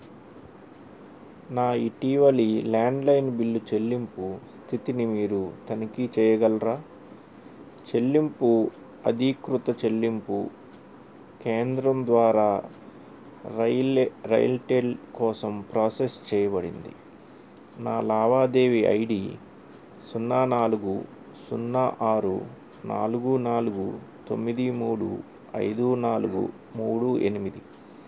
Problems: none marked